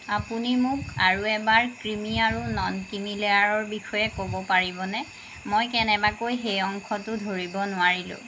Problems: constant background noise